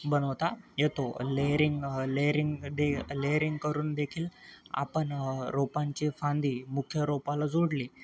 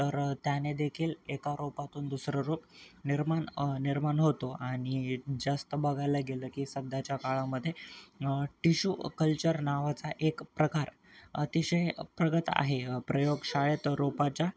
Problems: none marked